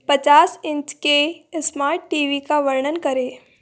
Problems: none marked